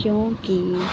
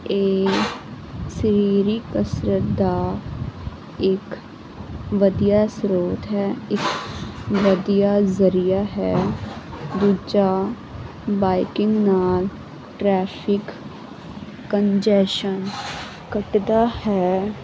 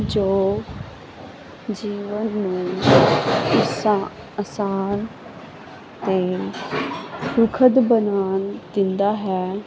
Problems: background sounds at intervals